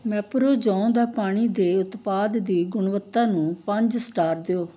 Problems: background sounds at intervals